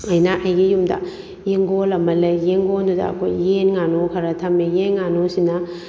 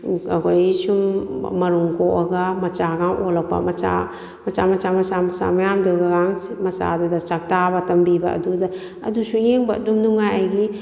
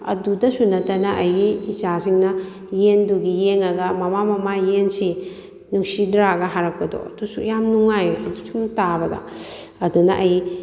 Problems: none marked